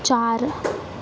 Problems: constant background noise